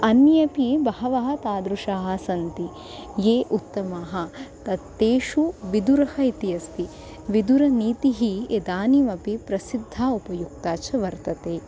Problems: constant background noise